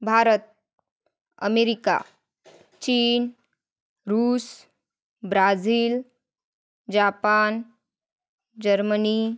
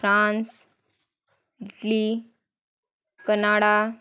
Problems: constant background noise